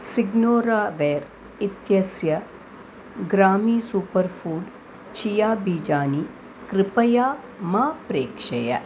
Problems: constant background noise